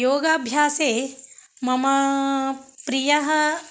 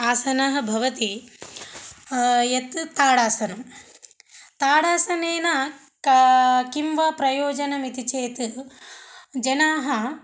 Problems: none marked